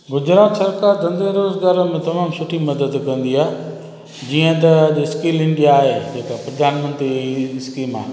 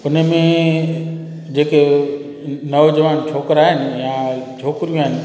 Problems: constant background noise, echo